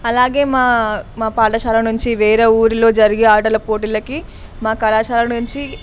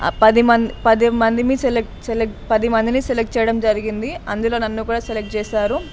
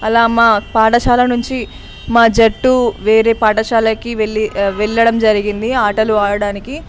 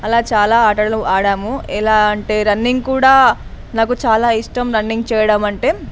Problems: constant background noise